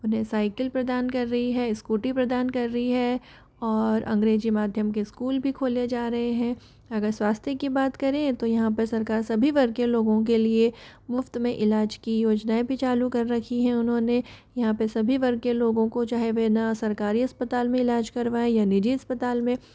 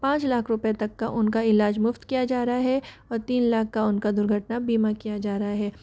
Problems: none marked